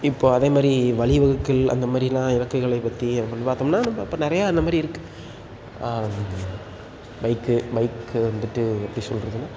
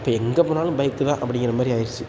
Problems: constant background noise